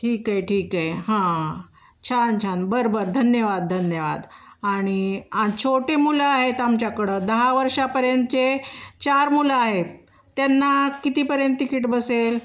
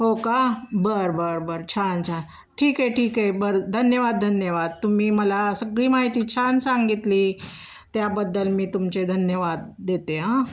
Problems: none marked